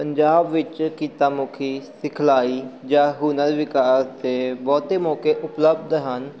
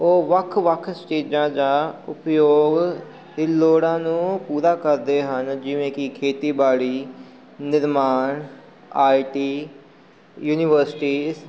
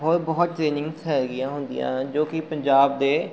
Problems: none marked